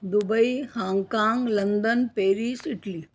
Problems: none marked